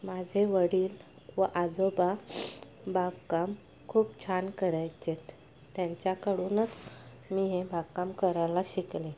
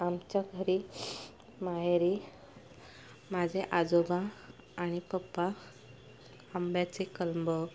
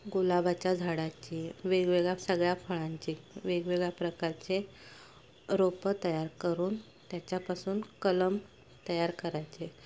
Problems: constant background noise, continuous background conversations